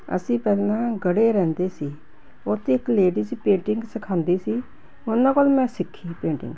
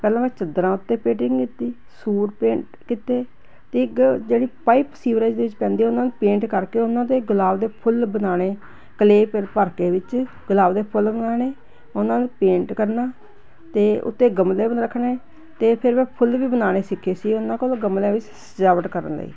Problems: none marked